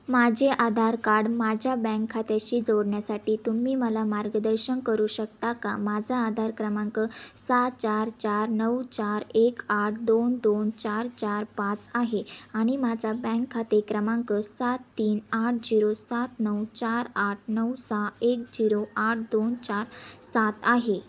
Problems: constant background noise